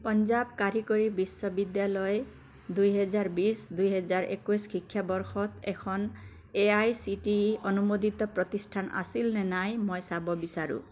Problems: constant background noise